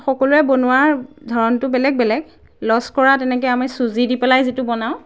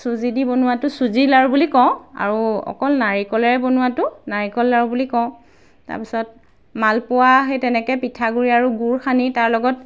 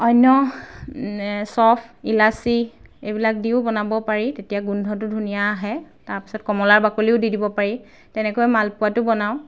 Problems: background sounds at intervals